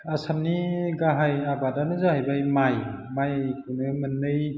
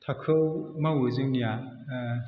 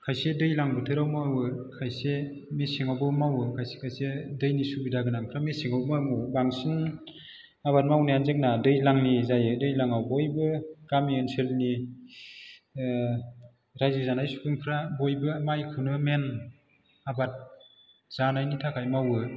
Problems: none marked